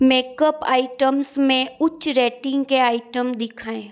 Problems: constant background noise